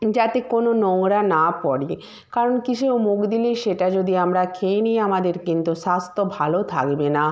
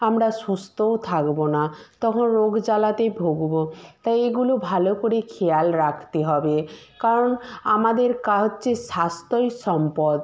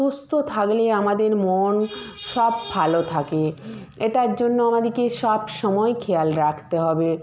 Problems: none marked